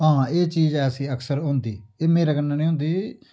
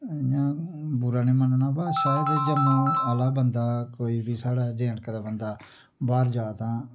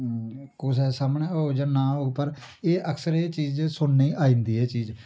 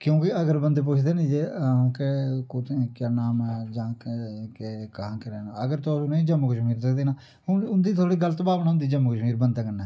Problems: low volume